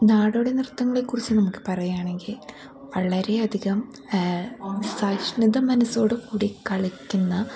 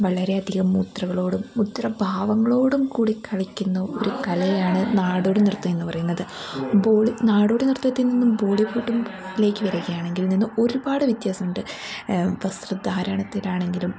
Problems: background sounds at intervals